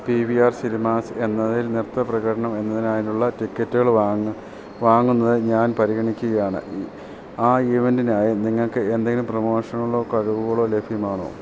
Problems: none marked